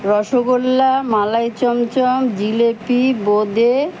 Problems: constant background noise